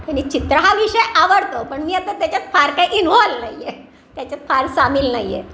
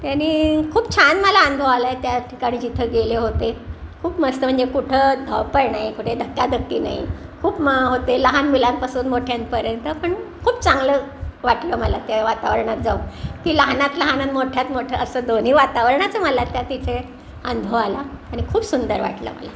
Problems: none marked